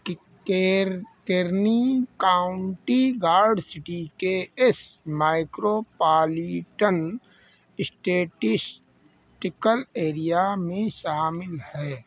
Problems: constant background noise